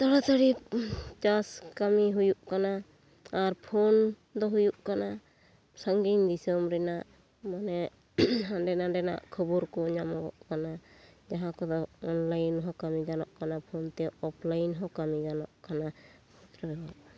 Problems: none marked